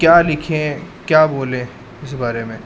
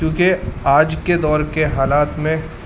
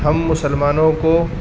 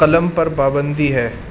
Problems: constant background noise